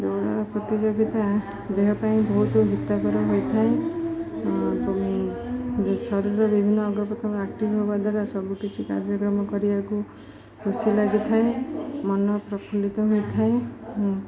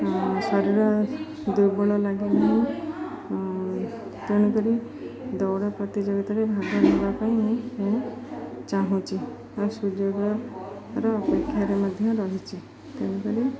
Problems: constant background noise, continuous background conversations